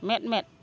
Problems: none marked